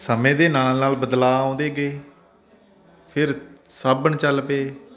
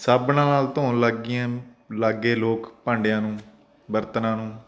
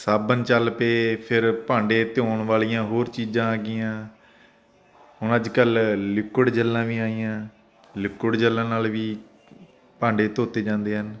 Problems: constant background noise